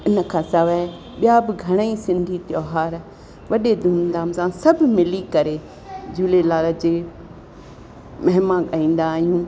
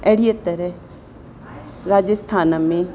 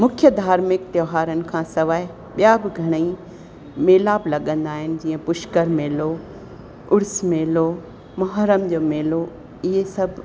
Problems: constant background noise, echo